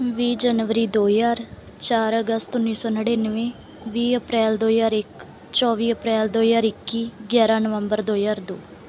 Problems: none marked